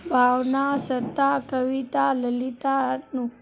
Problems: background sounds at intervals, low volume